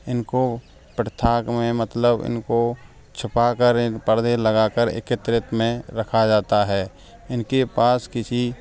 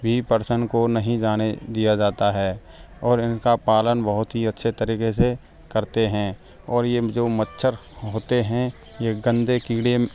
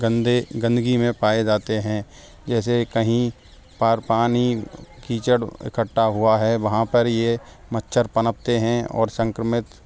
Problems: background sounds at intervals, background conversations at intervals